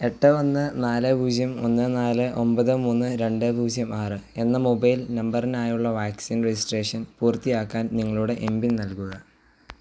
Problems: background sounds at intervals